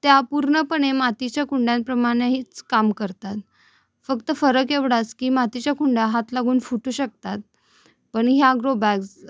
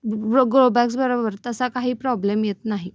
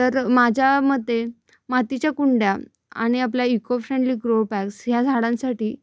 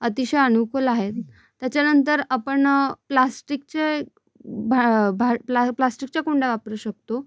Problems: none marked